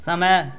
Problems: none marked